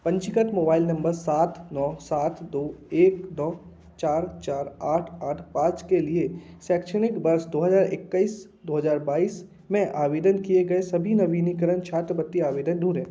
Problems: constant background noise, background conversations at intervals